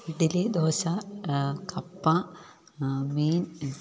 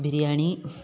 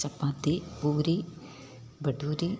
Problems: none marked